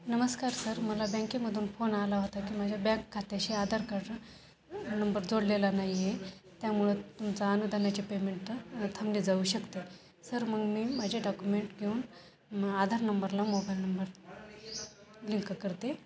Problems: constant background noise, continuous background conversations